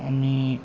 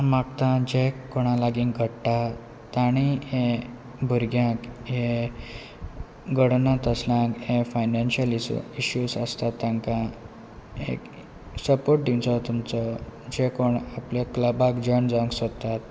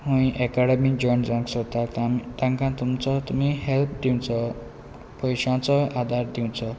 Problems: constant background noise